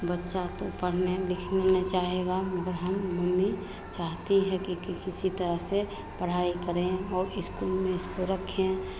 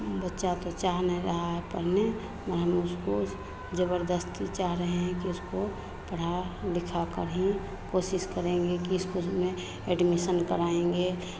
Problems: constant background noise, background conversations at intervals